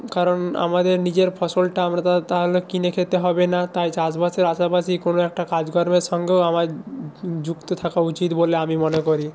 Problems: none marked